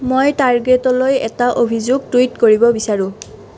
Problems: none marked